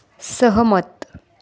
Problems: continuous background conversations